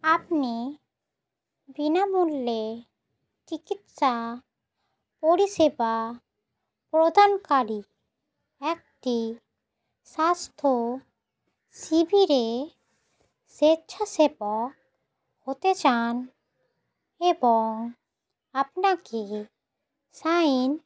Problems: none marked